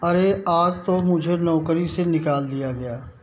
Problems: background sounds at intervals